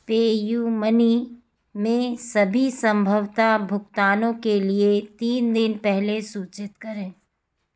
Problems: background sounds at intervals